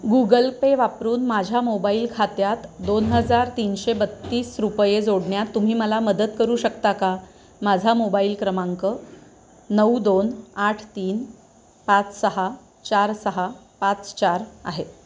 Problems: none marked